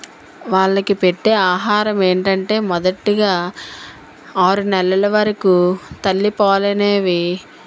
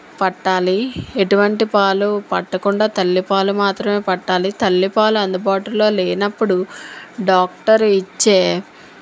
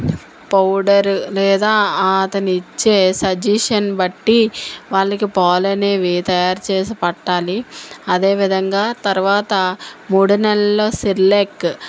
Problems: none marked